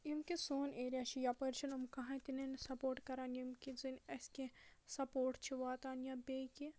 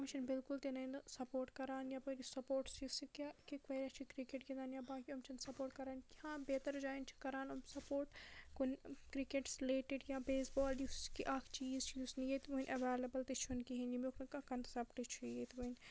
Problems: low volume